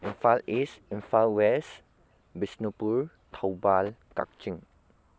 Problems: constant background noise